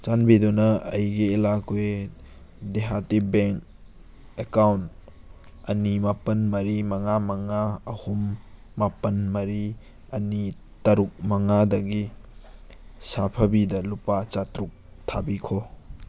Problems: background sounds at intervals